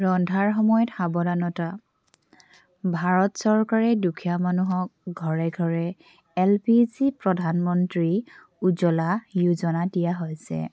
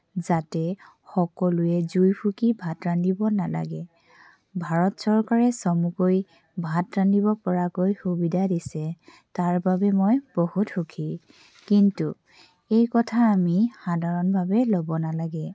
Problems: background sounds at intervals